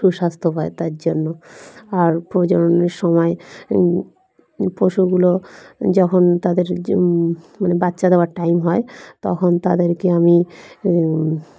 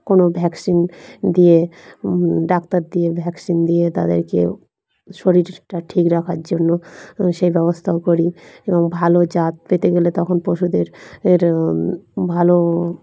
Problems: background sounds at intervals, continuous background conversations